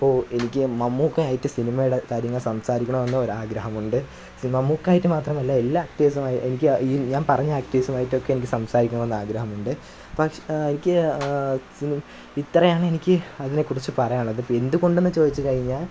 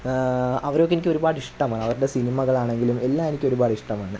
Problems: background sounds at intervals